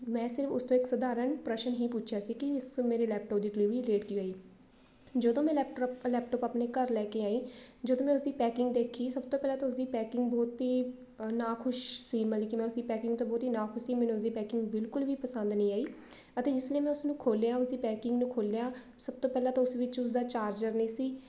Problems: background sounds at intervals, background conversations at intervals